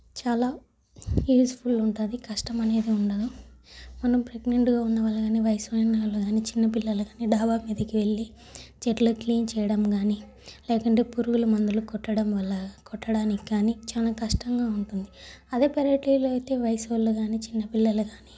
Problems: none marked